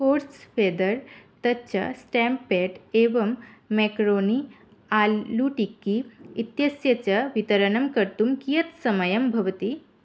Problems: none marked